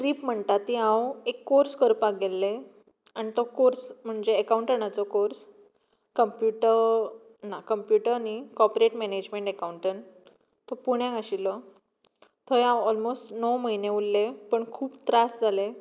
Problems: none marked